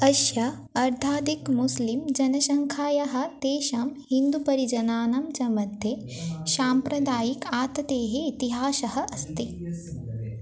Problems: constant background noise, continuous background conversations